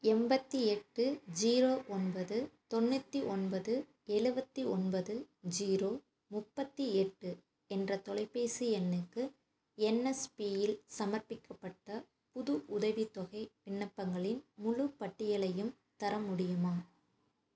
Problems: none marked